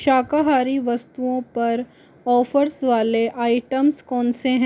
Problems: constant background noise